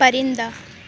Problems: constant background noise